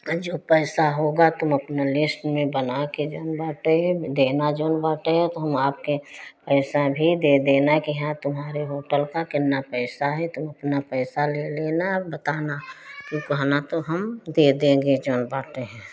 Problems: background sounds at intervals